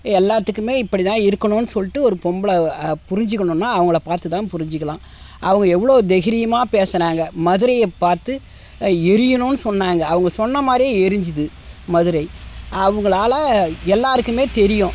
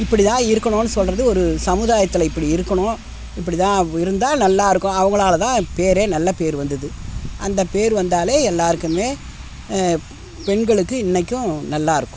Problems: constant background noise